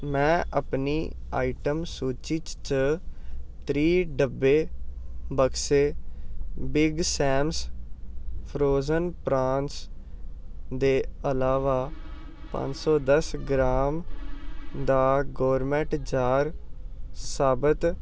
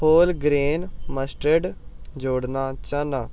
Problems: constant background noise